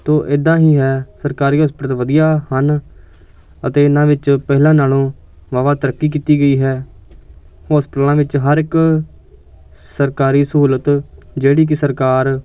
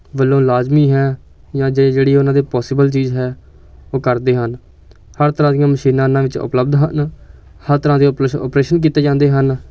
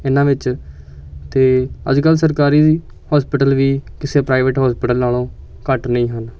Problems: constant background noise, background conversations at intervals